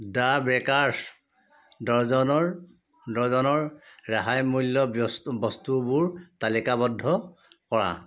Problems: background conversations at intervals